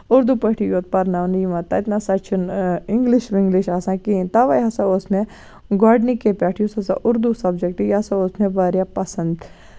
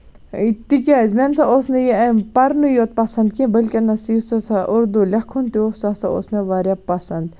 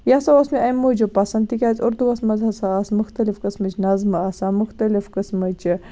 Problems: constant background noise